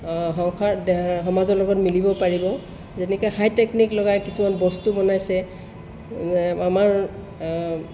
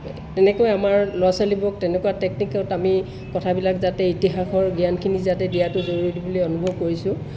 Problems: background sounds at intervals